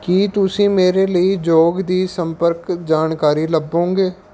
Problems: background sounds at intervals